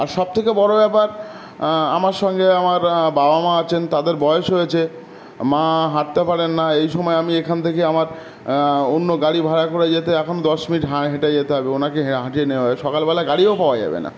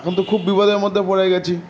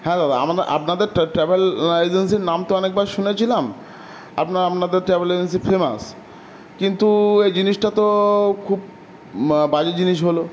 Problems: none marked